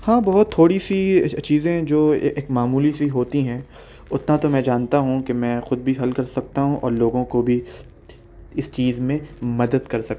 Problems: none marked